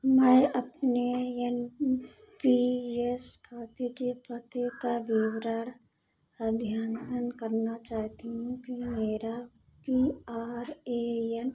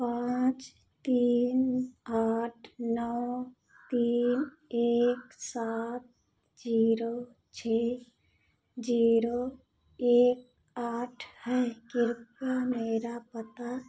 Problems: constant background noise, echo